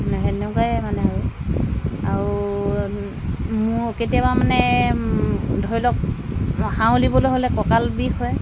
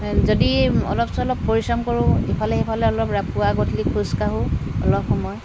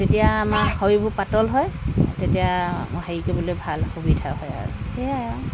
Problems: constant background noise